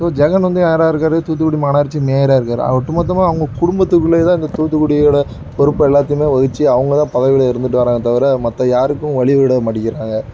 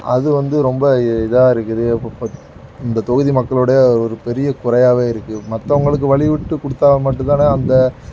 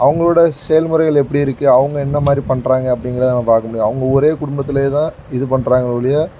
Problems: background sounds at intervals